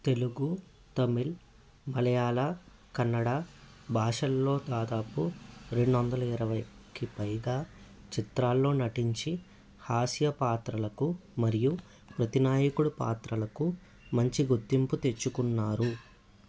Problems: none marked